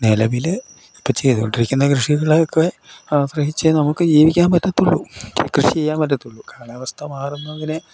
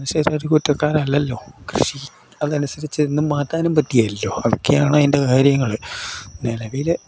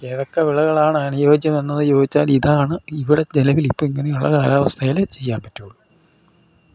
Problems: none marked